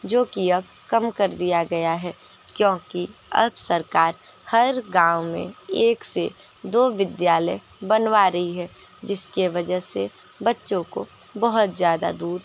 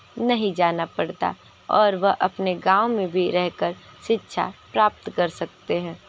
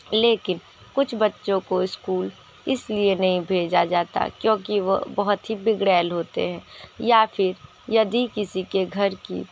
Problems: constant background noise